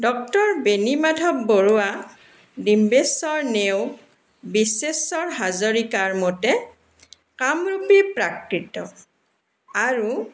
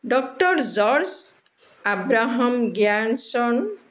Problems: background sounds at intervals